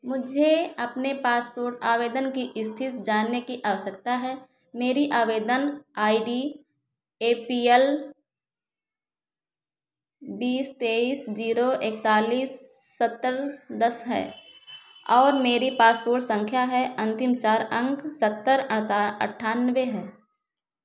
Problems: echo